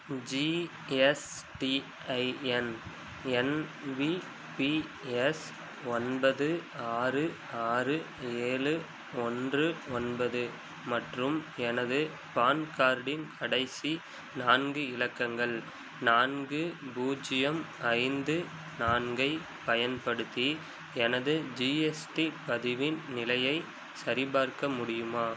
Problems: background sounds at intervals